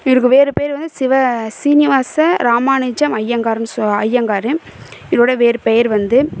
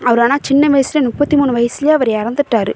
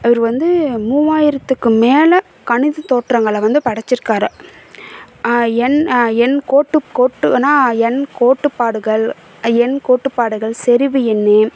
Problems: background sounds at intervals